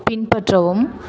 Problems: continuous background conversations